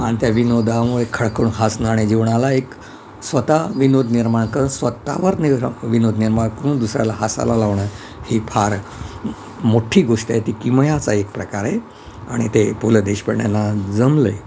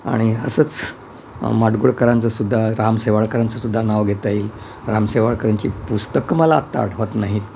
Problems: constant background noise